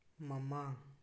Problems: low volume